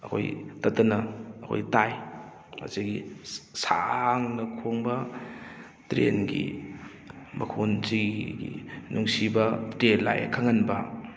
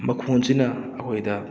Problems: none marked